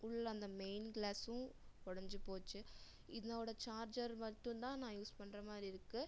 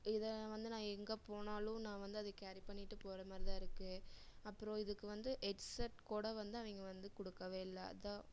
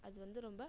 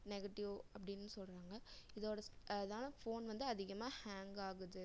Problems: low volume